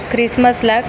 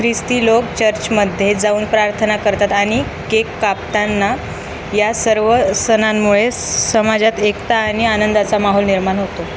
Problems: constant background noise